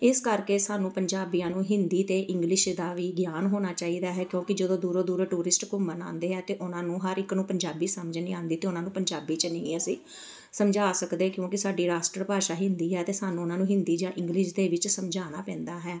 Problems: background sounds at intervals, background conversations at intervals